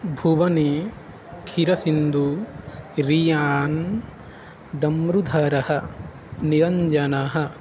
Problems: constant background noise